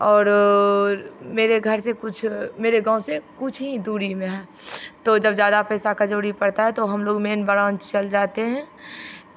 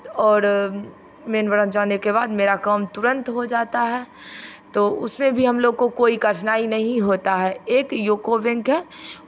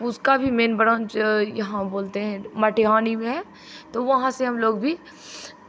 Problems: constant background noise